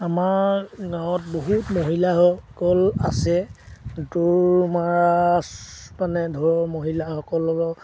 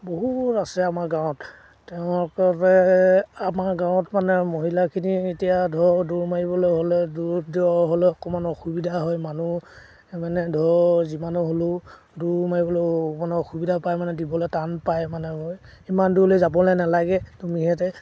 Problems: background sounds at intervals